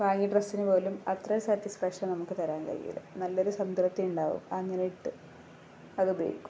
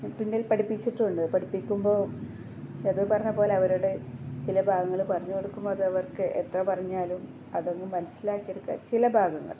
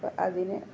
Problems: low volume